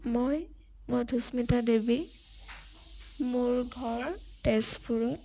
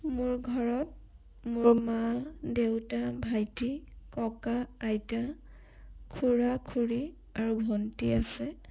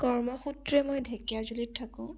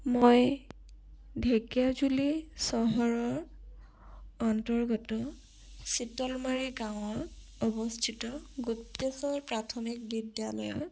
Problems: none marked